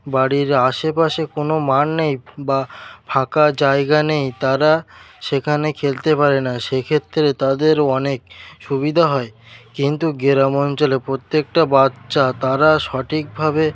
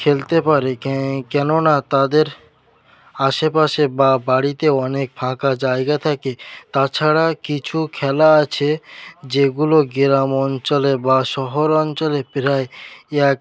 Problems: none marked